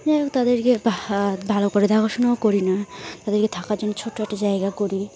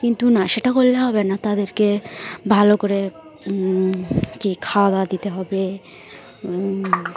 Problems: none marked